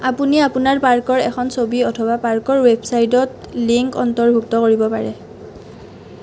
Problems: none marked